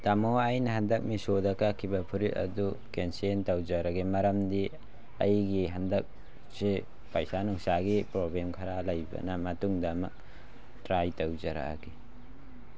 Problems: none marked